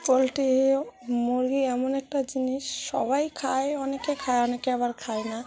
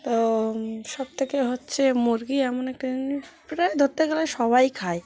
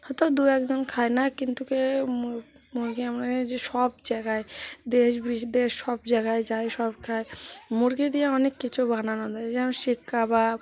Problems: constant background noise, continuous background conversations